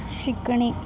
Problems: none marked